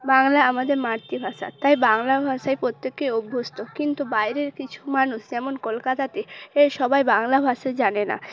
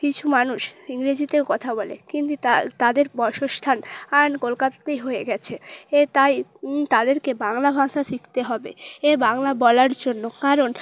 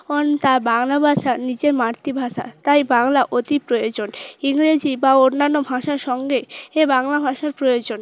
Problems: background sounds at intervals, background conversations at intervals